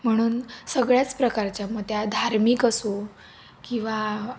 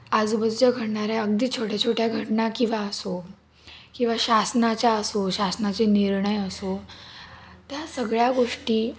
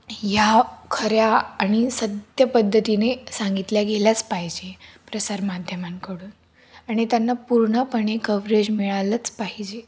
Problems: constant background noise, background conversations at intervals